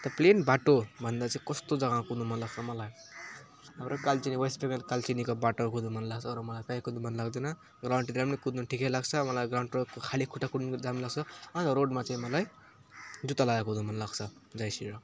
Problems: constant background noise